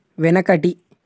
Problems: none marked